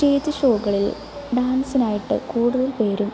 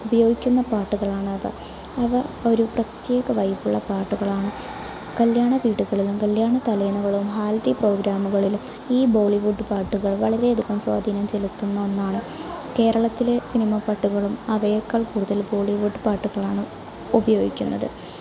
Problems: constant background noise, low volume